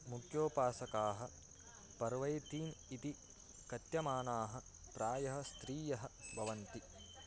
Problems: constant background noise